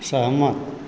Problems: constant background noise